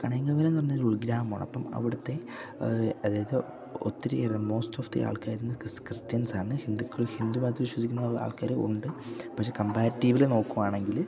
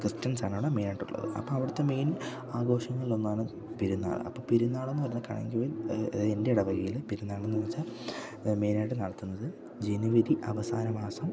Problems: low volume